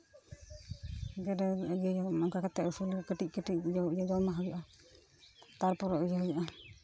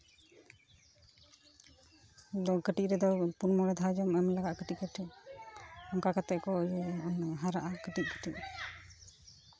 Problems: background sounds at intervals, continuous background conversations